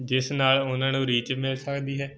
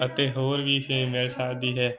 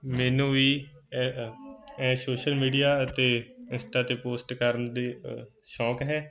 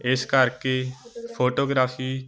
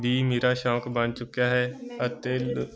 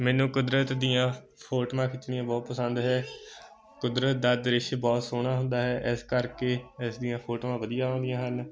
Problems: constant background noise, continuous background conversations